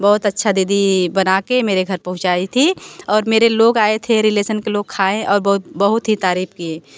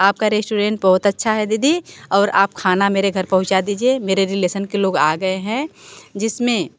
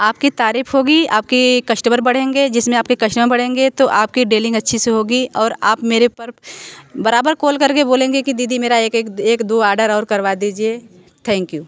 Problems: background sounds at intervals